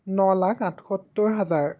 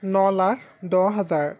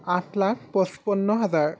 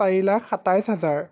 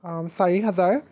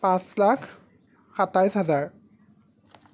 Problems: background sounds at intervals